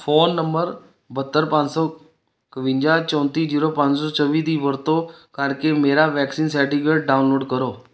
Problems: none marked